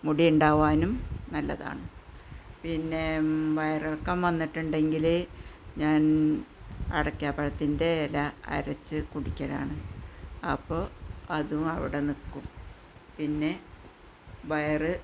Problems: continuous background conversations